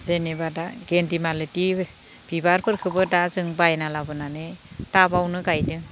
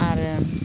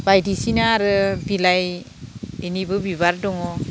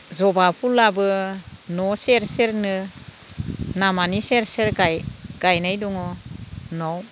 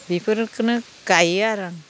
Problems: constant background noise